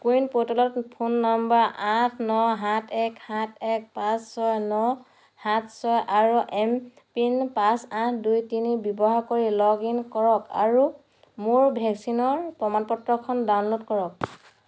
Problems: none marked